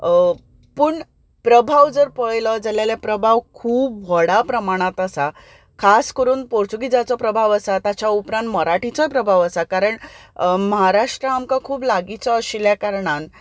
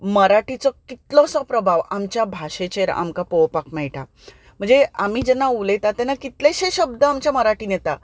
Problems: background sounds at intervals